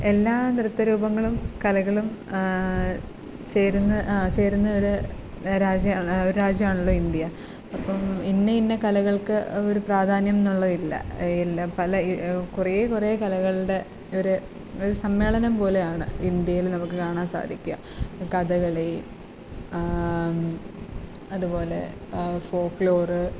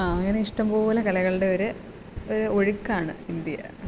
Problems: constant background noise